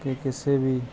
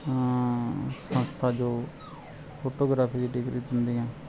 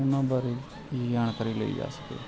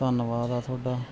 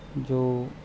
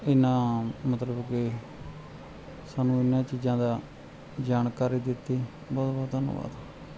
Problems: continuous background conversations